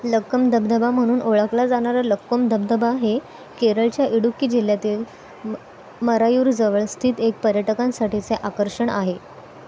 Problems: none marked